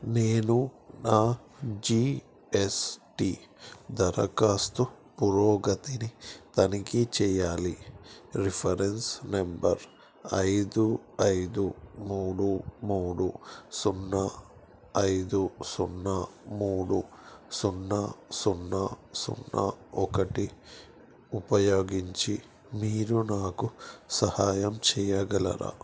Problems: none marked